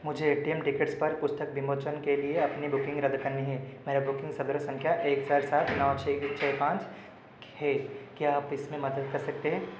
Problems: constant background noise